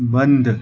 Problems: constant background noise, continuous background conversations